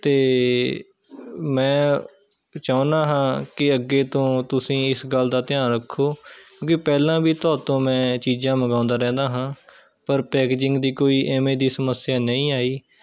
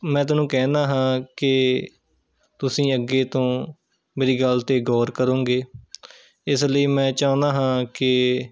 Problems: continuous background conversations